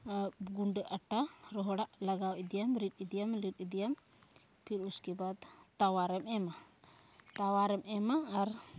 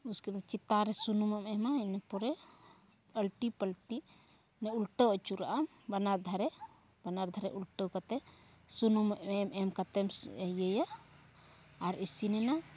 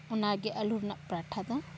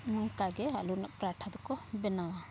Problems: none marked